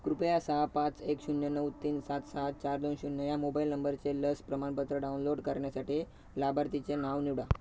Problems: none marked